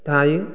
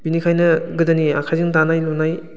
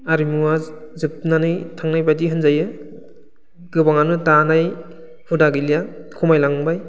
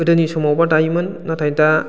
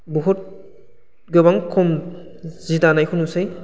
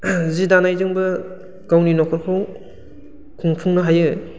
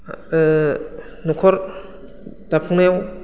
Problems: constant background noise